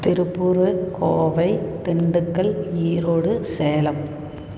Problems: none marked